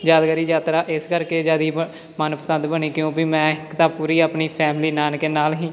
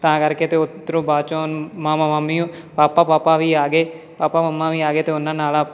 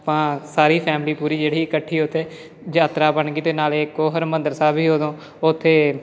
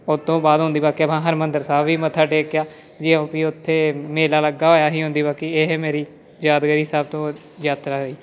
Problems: constant background noise, background conversations at intervals